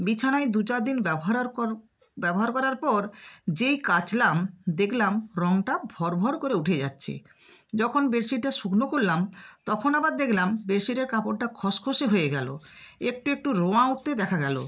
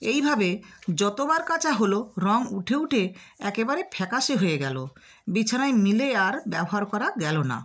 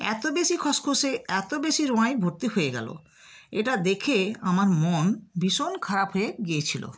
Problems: none marked